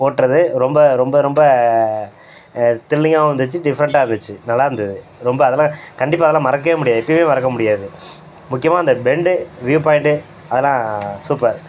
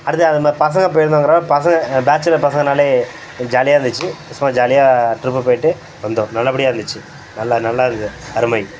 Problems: constant background noise